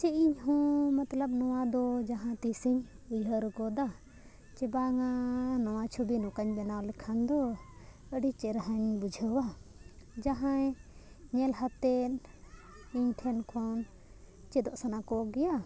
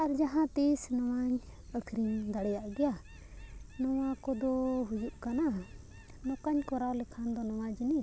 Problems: background sounds at intervals